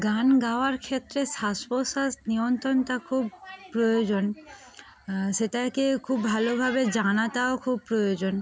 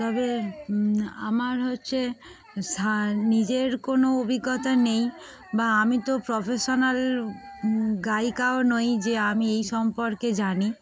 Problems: background sounds at intervals, continuous background conversations